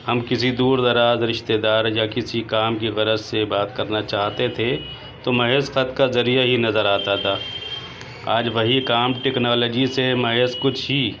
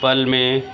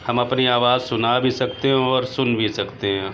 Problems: constant background noise